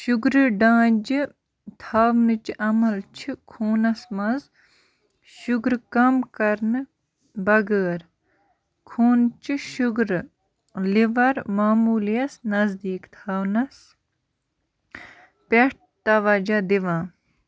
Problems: constant background noise